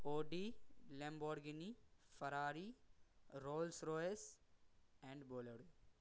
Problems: background sounds at intervals